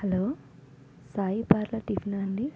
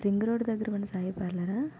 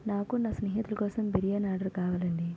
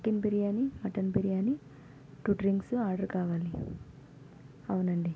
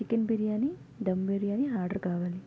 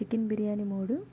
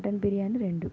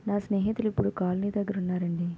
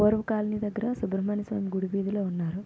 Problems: constant background noise, background conversations at intervals, low volume